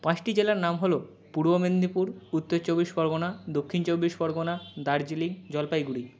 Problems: none marked